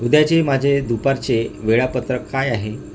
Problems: constant background noise